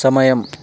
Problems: none marked